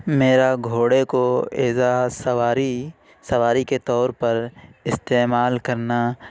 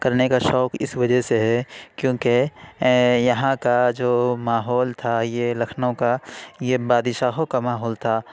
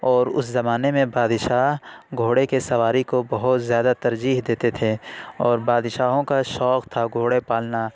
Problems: none marked